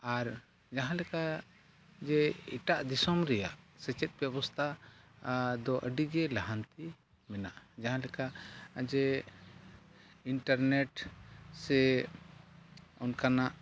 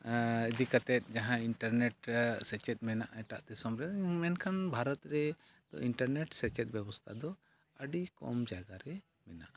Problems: background sounds at intervals, low volume